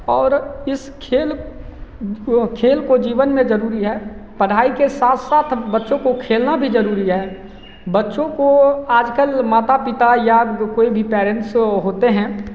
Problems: constant background noise, echo